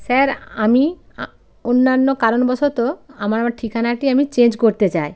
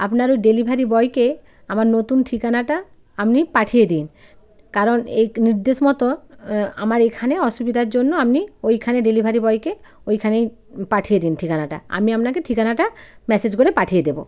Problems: constant background noise